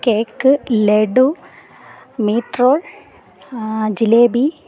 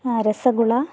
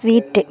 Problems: background conversations at intervals